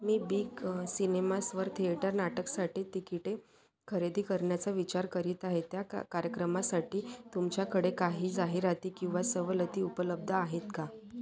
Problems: none marked